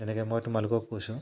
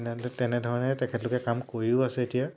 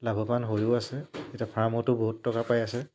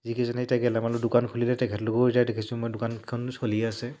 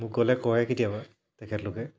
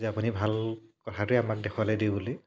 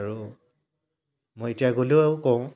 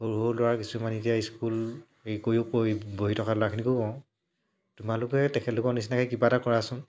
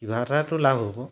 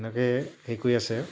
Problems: low volume